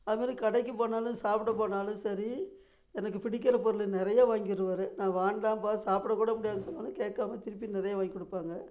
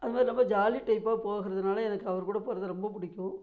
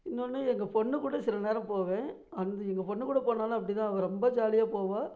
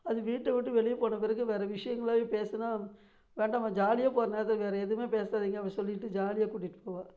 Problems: low volume